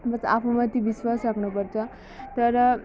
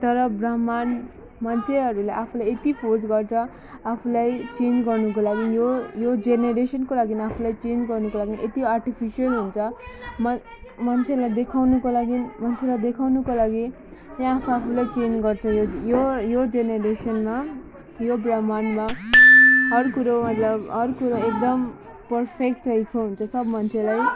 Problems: background sounds at intervals